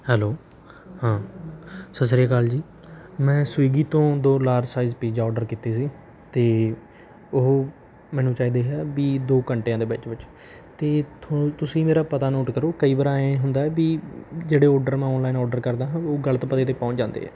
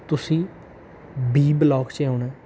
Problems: background sounds at intervals